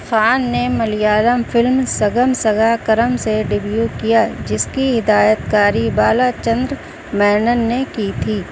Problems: constant background noise